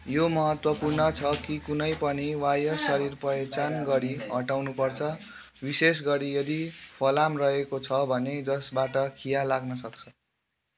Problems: continuous background conversations